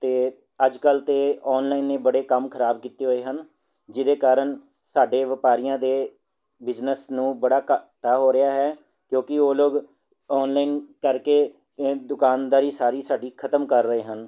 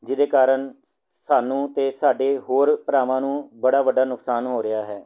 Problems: none marked